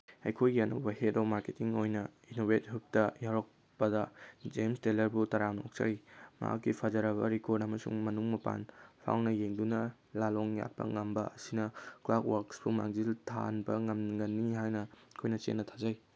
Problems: background sounds at intervals